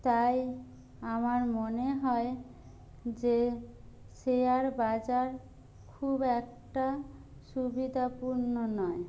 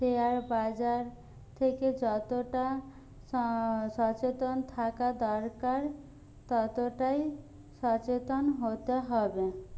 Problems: low volume